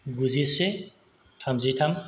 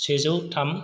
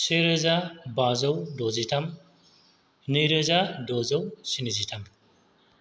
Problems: none marked